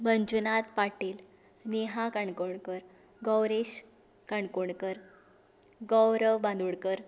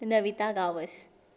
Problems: none marked